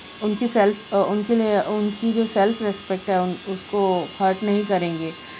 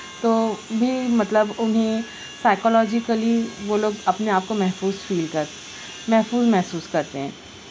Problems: constant background noise